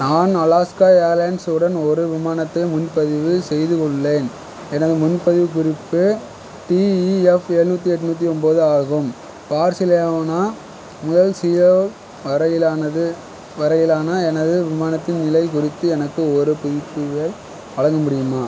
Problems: constant background noise